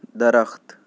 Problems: constant background noise